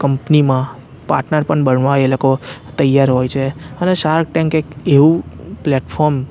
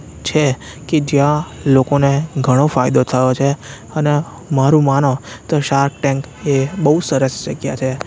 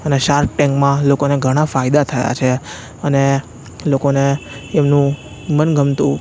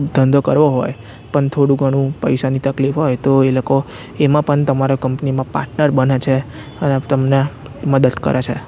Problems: none marked